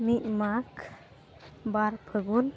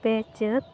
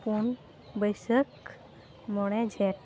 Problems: background sounds at intervals